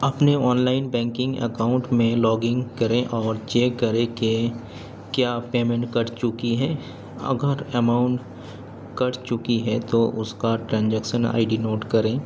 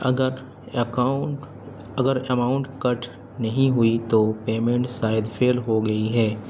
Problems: constant background noise